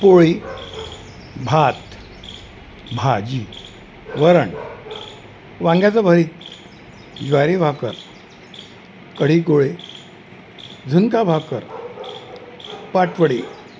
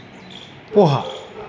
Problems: constant background noise